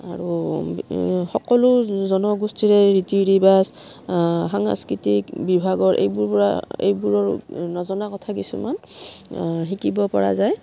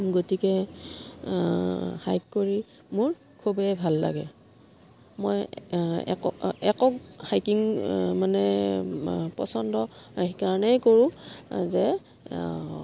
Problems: background sounds at intervals